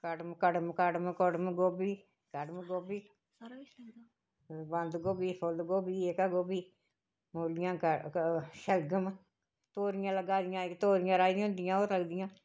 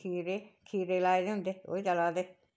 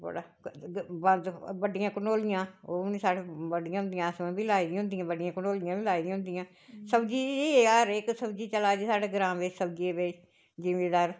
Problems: none marked